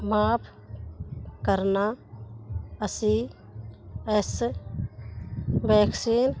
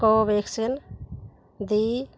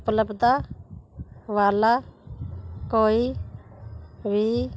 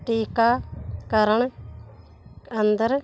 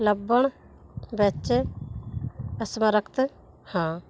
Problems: none marked